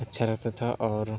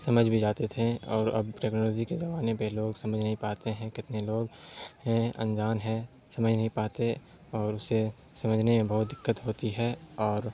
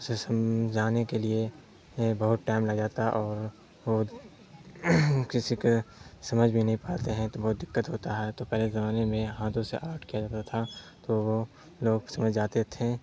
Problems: constant background noise